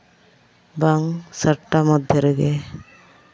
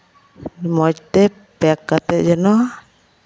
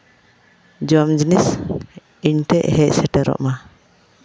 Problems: none marked